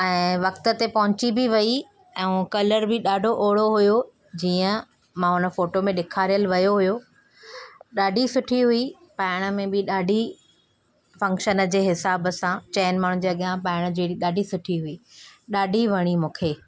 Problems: none marked